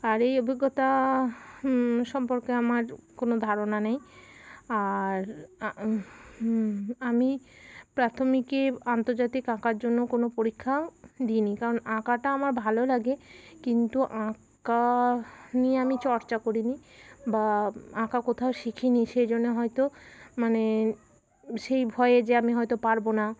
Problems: constant background noise, continuous background conversations